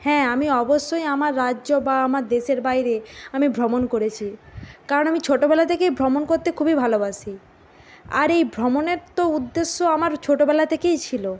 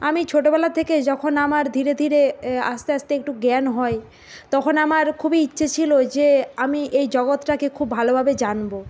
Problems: none marked